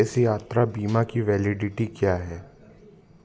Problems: constant background noise